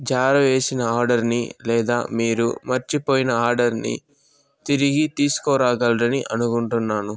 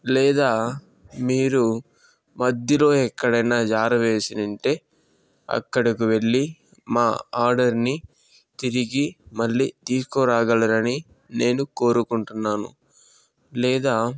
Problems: background sounds at intervals